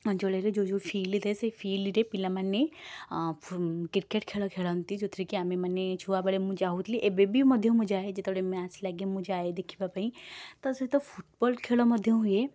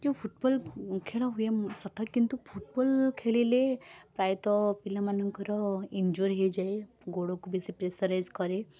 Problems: none marked